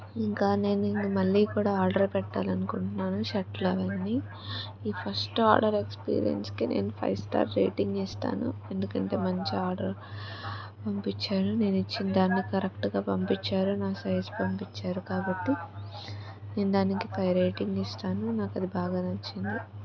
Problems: constant background noise, continuous background conversations